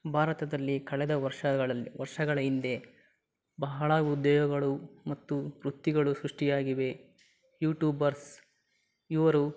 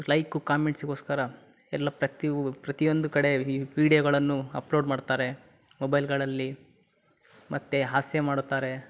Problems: background sounds at intervals